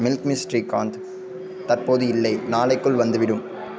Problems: constant background noise